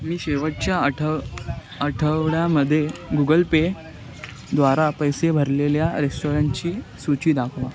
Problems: none marked